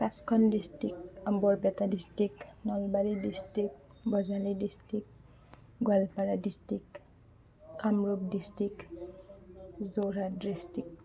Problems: background conversations at intervals